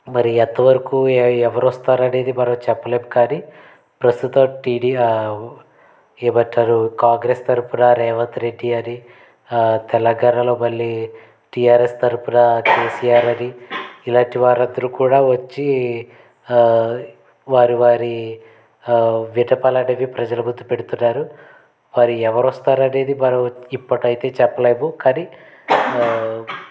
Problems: background sounds at intervals